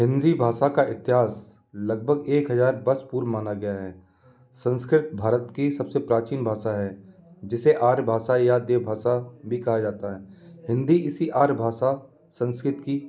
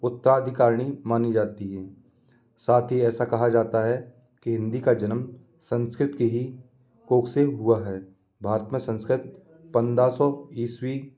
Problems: constant background noise